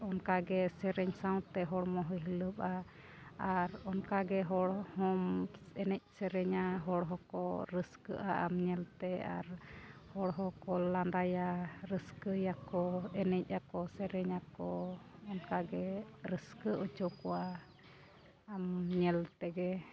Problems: constant background noise, background conversations at intervals